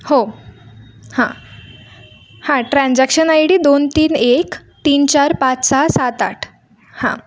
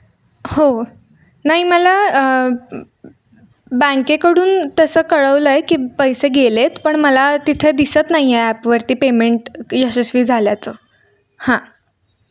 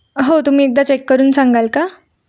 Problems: none marked